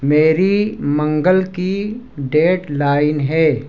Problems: constant background noise